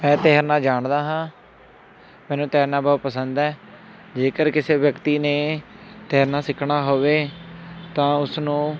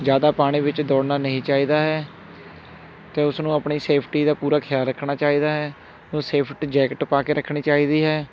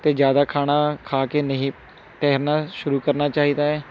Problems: constant background noise